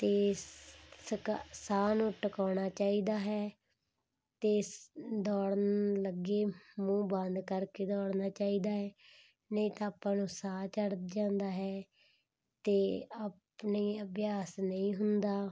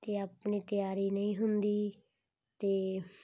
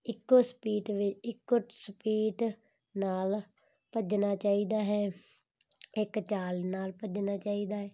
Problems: none marked